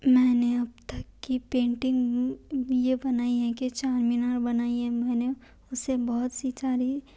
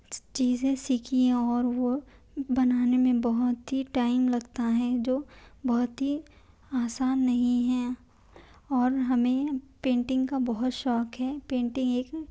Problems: none marked